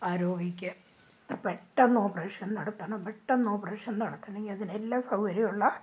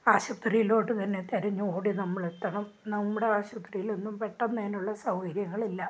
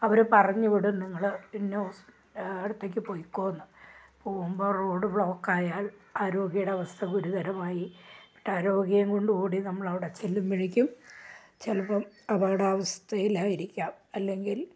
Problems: none marked